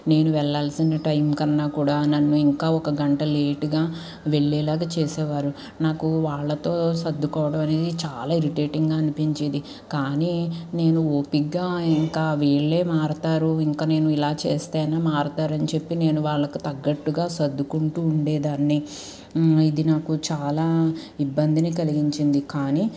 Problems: none marked